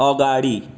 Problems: none marked